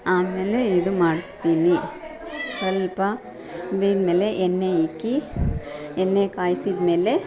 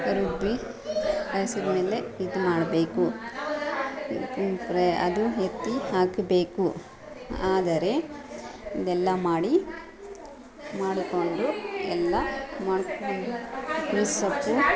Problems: background sounds at intervals, background conversations at intervals